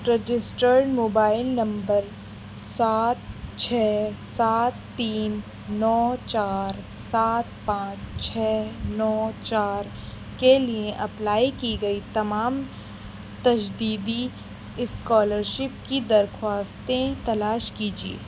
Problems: constant background noise